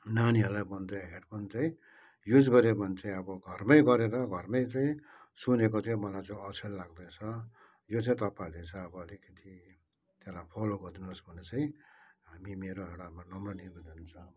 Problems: background sounds at intervals